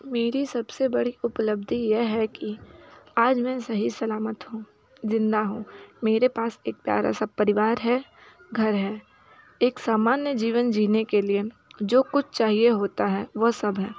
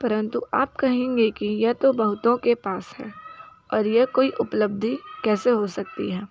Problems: constant background noise, continuous background conversations